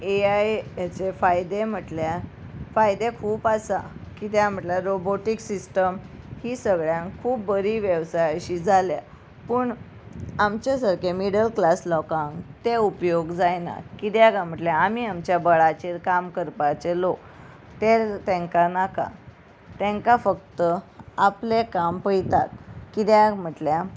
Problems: constant background noise